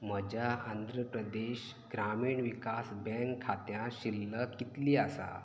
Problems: low volume